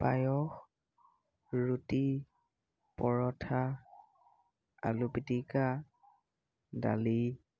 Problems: none marked